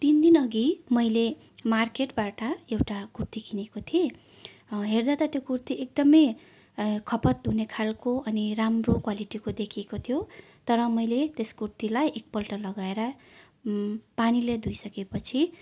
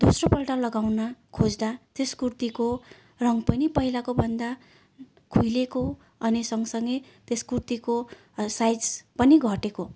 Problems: none marked